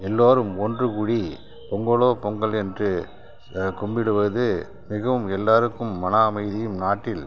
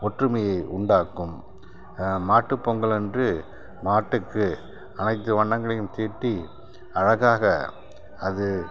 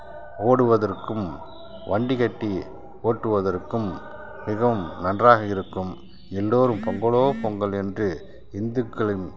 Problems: background sounds at intervals